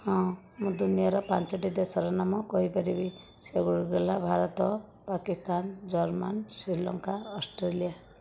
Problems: none marked